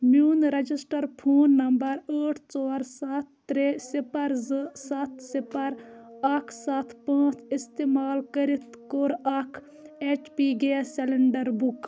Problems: background sounds at intervals, continuous background conversations